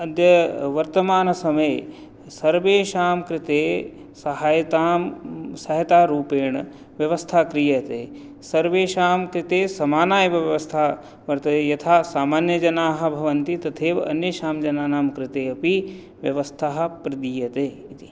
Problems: none marked